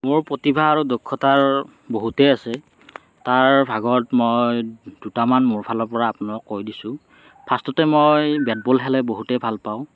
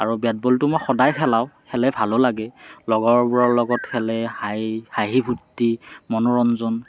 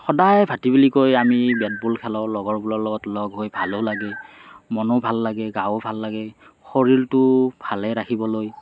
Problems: none marked